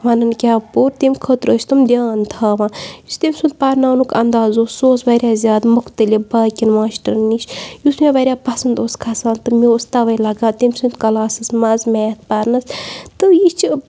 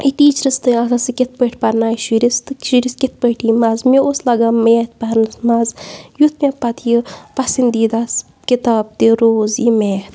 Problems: none marked